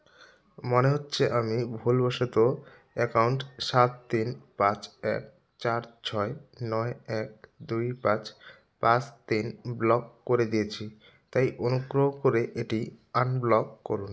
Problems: background sounds at intervals